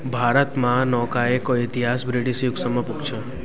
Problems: continuous background conversations